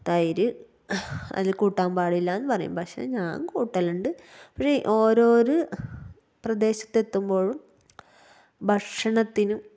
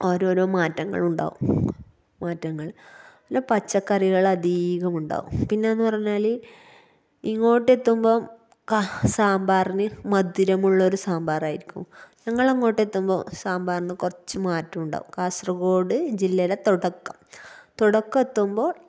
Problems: none marked